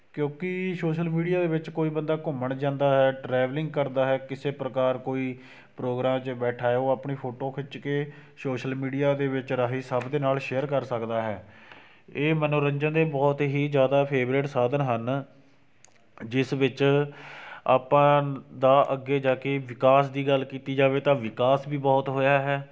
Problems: none marked